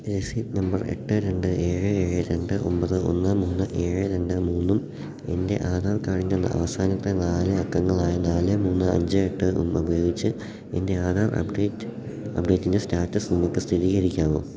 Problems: none marked